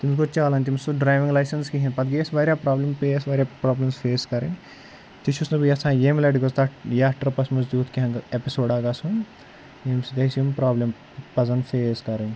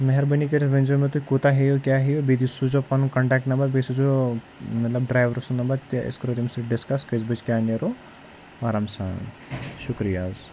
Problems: none marked